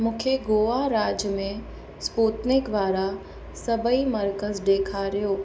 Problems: constant background noise, echo